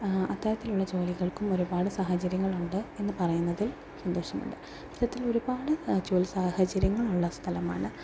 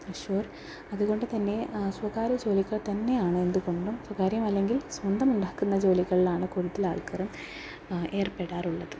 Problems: background sounds at intervals, low volume